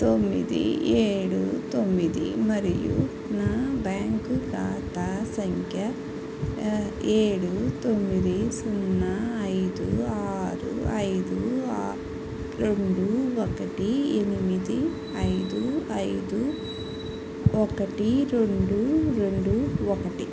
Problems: constant background noise